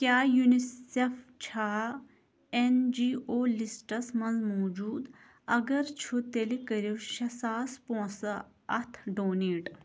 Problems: background sounds at intervals